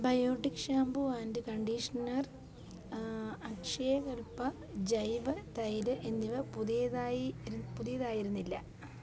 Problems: low volume